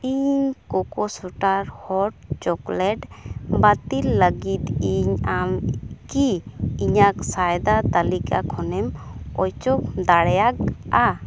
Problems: background sounds at intervals